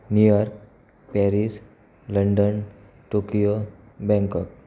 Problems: constant background noise